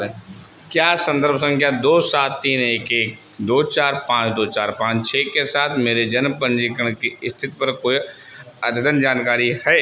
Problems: constant background noise